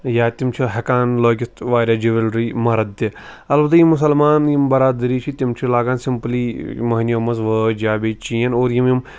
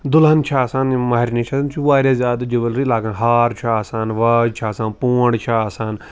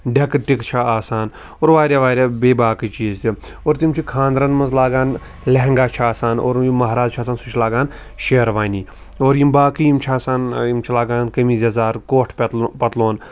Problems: background sounds at intervals